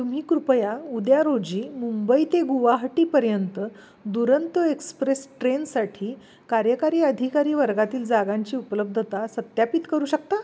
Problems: none marked